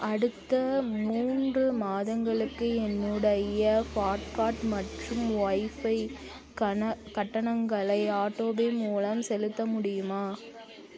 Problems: continuous background conversations